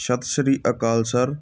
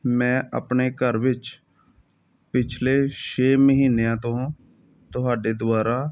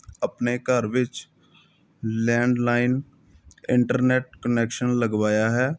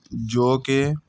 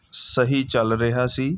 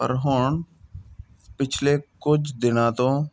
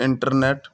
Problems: none marked